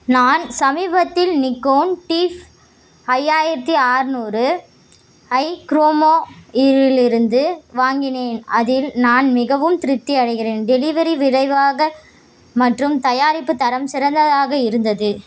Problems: constant background noise